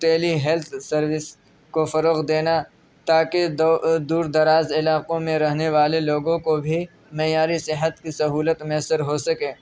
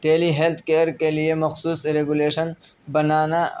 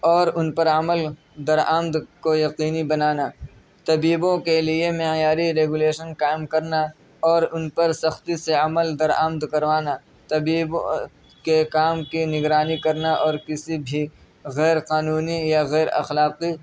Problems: none marked